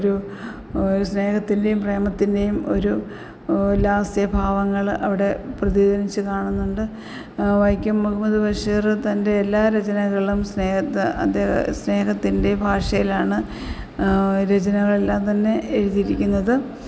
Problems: background sounds at intervals